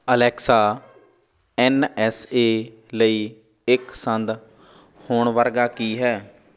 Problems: constant background noise